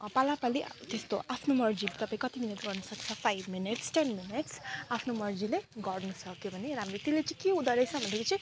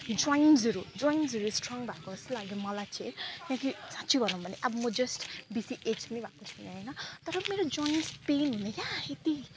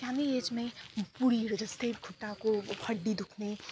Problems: none marked